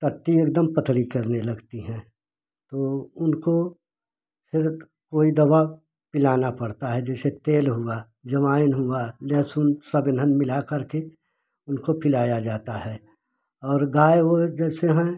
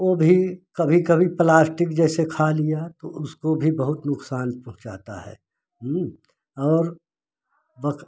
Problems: constant background noise